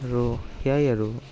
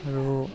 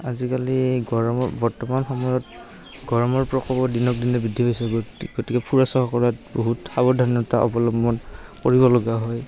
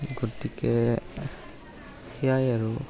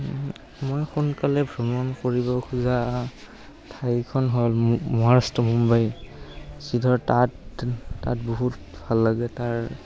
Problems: background sounds at intervals, continuous background conversations